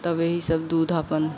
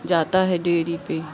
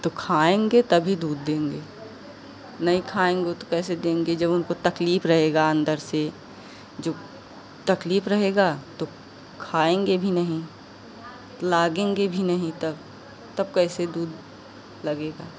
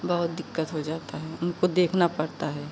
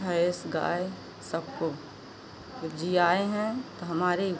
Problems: constant background noise